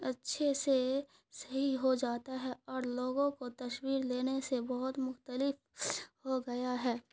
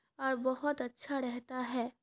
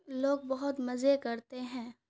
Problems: none marked